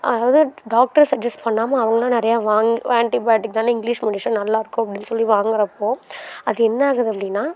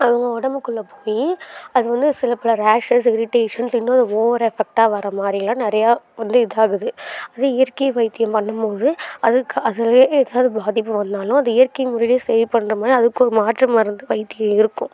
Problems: none marked